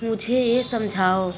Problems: constant background noise